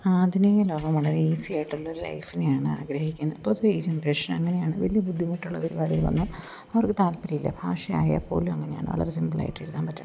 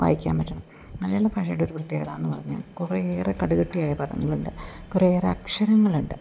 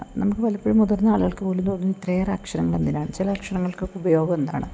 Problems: none marked